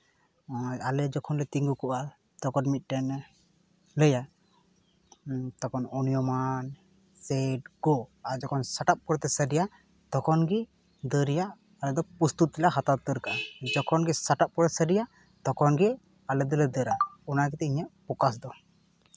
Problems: background sounds at intervals